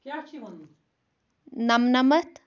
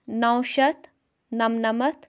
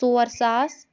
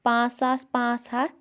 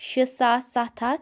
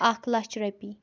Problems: background conversations at intervals